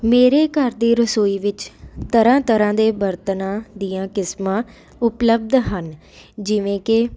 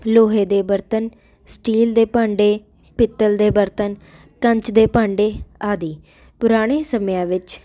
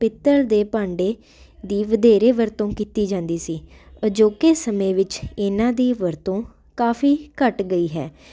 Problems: none marked